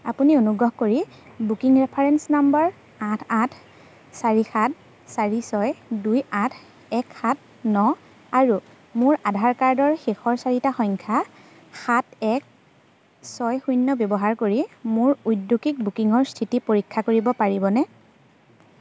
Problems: constant background noise, background conversations at intervals